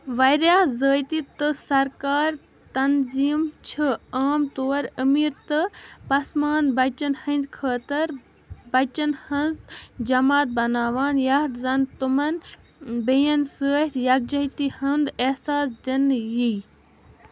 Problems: constant background noise